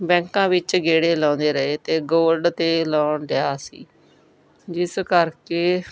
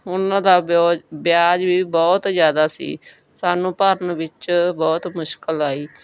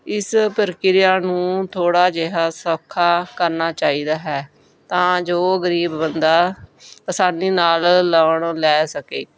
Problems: background sounds at intervals